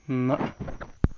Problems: constant background noise